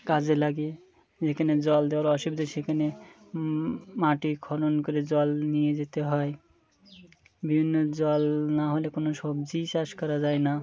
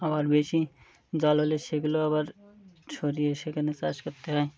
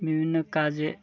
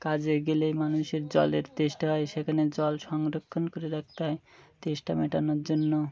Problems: background sounds at intervals